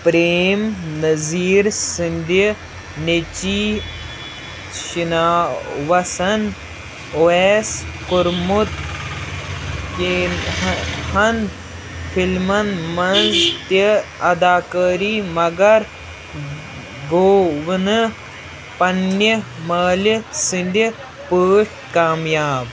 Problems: constant background noise